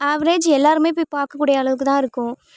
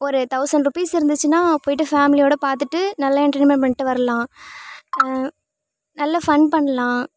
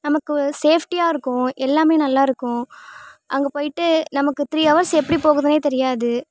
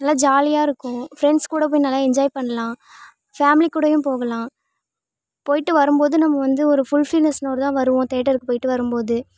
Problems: constant background noise